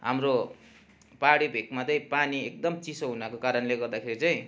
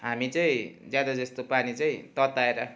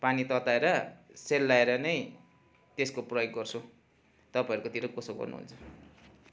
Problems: constant background noise